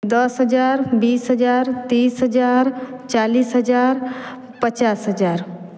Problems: none marked